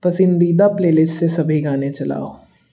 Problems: background sounds at intervals